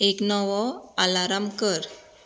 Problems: constant background noise